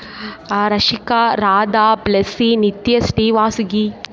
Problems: background conversations at intervals